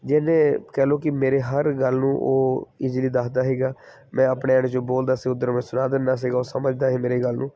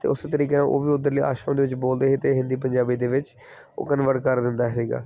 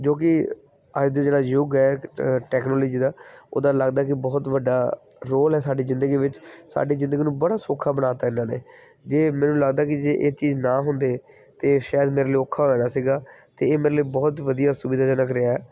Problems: background sounds at intervals